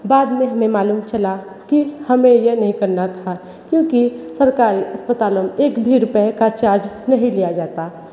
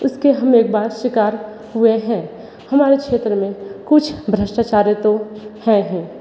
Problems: constant background noise